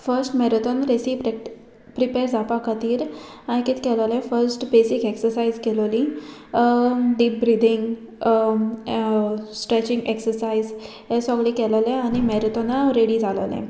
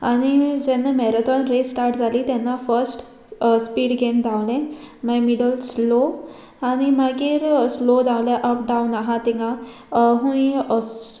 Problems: none marked